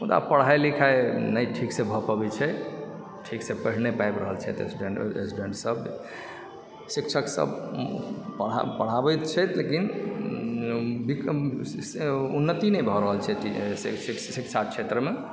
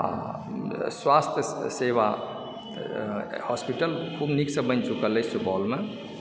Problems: background sounds at intervals